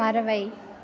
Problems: background conversations at intervals